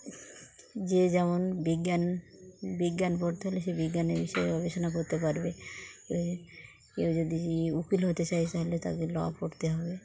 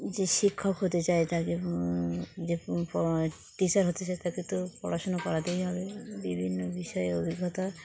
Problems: constant background noise, background conversations at intervals